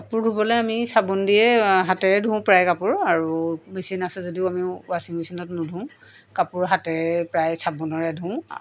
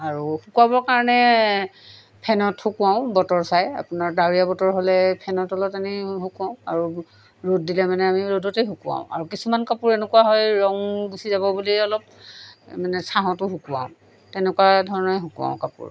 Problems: background sounds at intervals